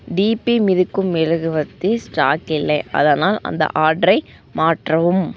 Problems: constant background noise